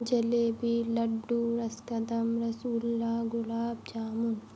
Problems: constant background noise